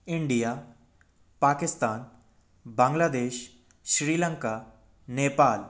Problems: none marked